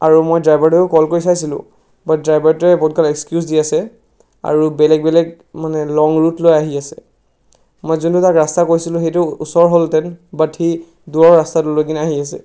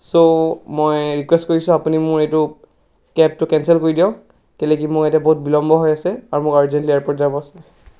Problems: background sounds at intervals